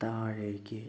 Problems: low volume